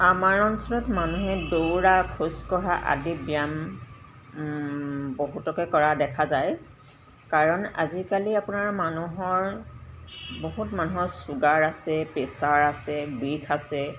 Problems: background sounds at intervals